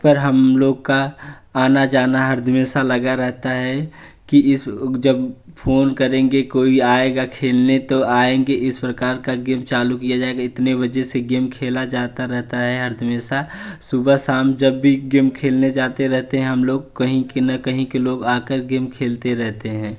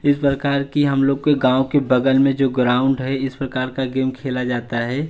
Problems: none marked